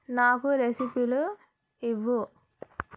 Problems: constant background noise